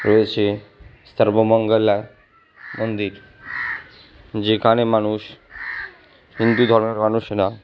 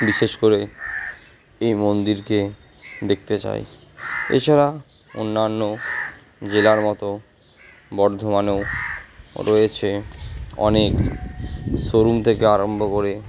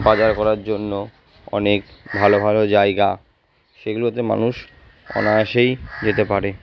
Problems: background sounds at intervals